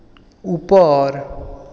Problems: echo